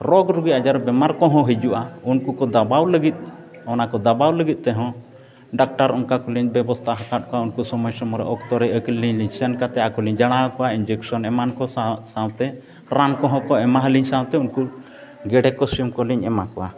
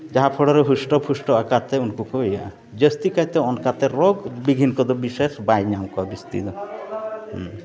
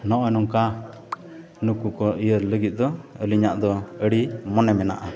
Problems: background sounds at intervals, continuous background conversations